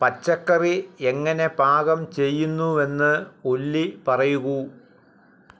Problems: background sounds at intervals